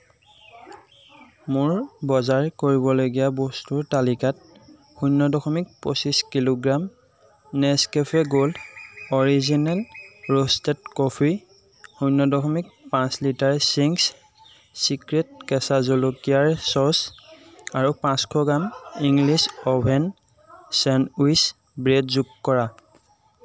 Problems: constant background noise